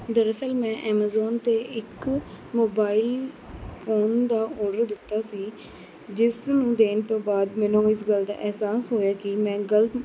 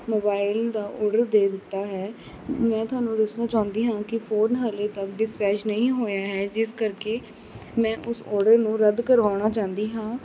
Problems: none marked